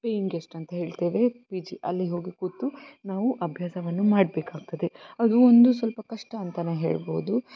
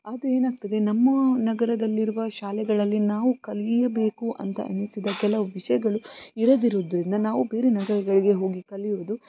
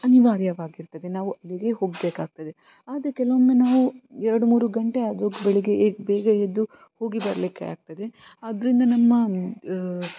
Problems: constant background noise